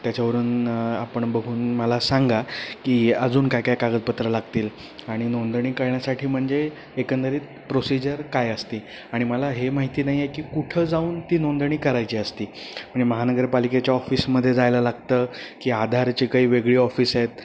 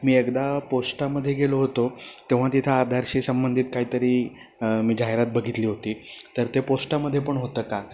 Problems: constant background noise